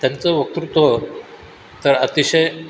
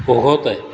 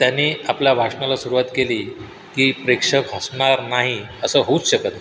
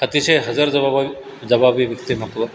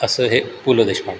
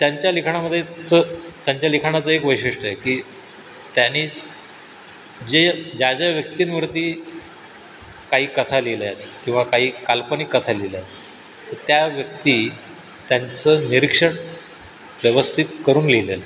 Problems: constant background noise